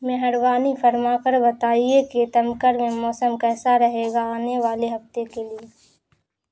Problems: none marked